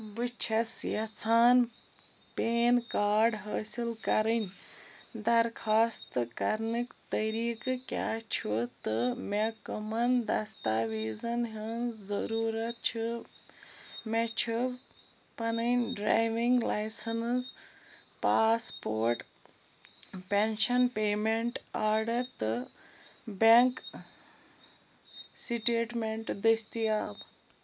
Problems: none marked